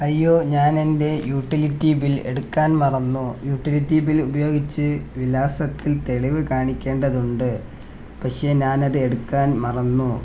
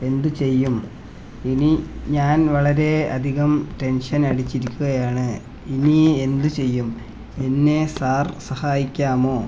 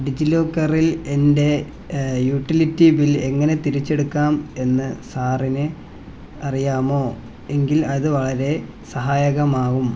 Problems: background sounds at intervals